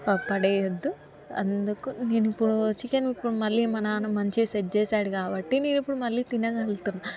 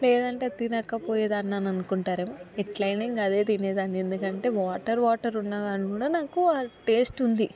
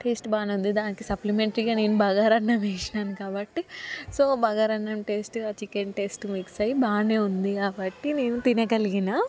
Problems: background sounds at intervals, background conversations at intervals